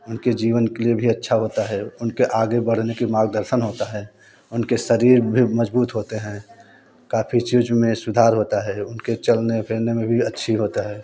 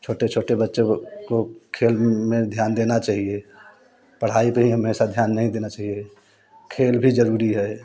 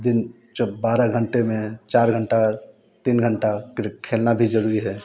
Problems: none marked